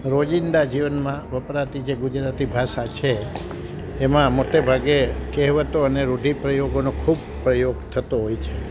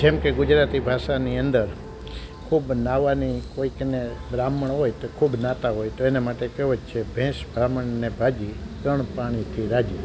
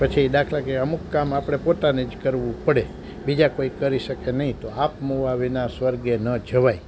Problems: constant background noise